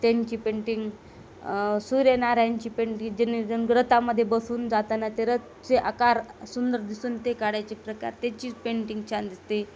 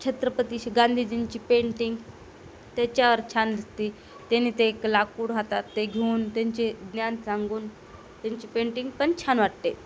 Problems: constant background noise